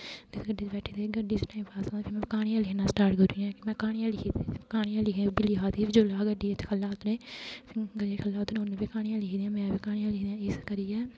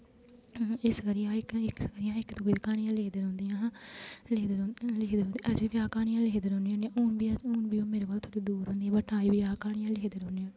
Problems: constant background noise